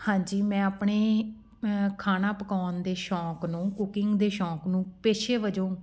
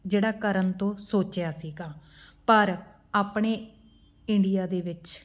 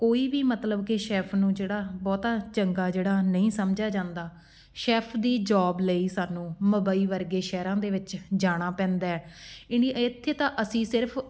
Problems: background sounds at intervals